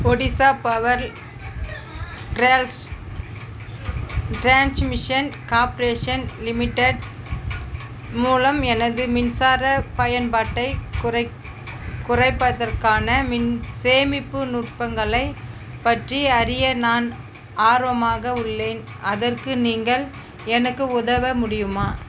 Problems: constant background noise, background conversations at intervals